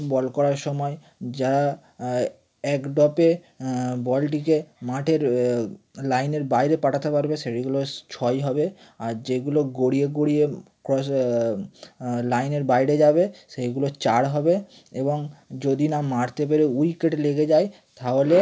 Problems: none marked